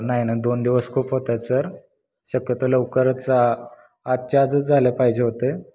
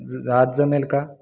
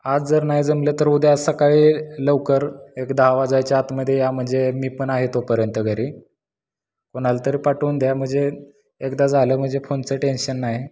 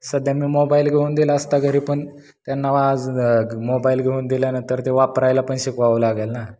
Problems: constant background noise